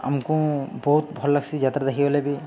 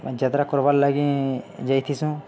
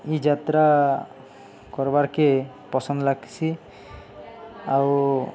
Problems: none marked